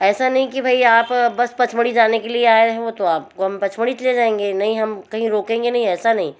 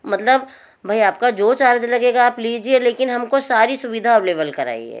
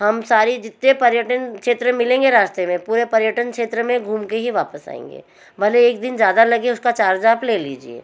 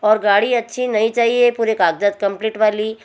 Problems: background sounds at intervals